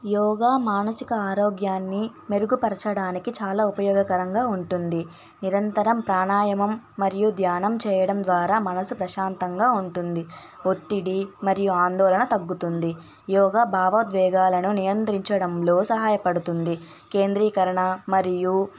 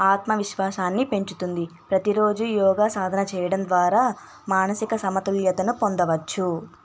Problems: background sounds at intervals, background conversations at intervals